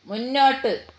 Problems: none marked